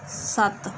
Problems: background sounds at intervals